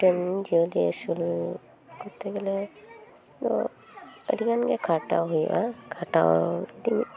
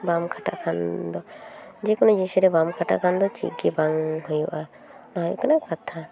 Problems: constant background noise, continuous background conversations